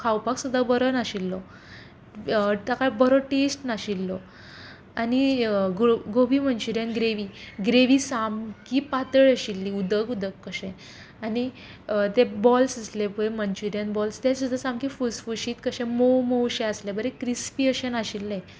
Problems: background conversations at intervals